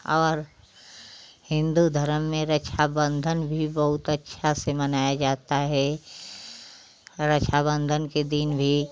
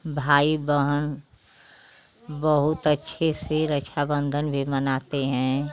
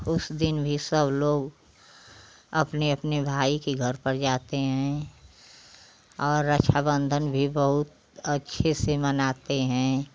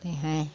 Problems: none marked